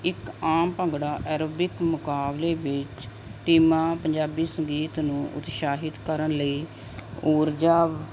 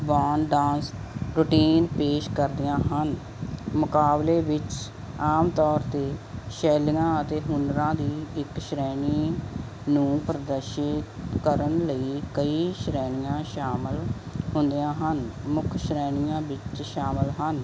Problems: constant background noise